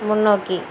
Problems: background sounds at intervals